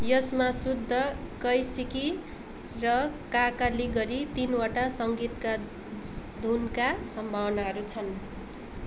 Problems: background sounds at intervals